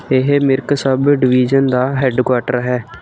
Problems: none marked